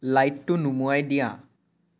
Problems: none marked